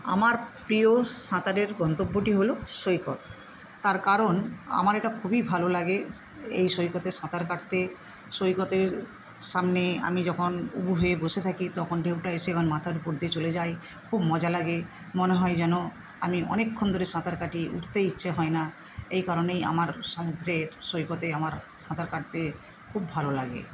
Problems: constant background noise